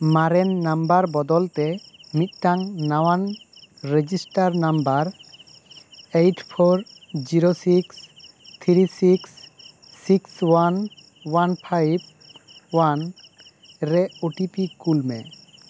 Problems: constant background noise